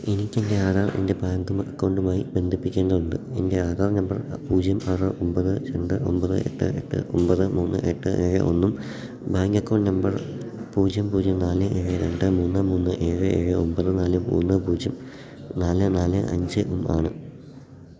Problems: background sounds at intervals